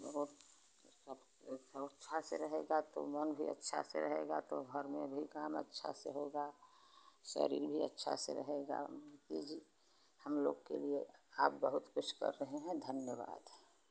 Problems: none marked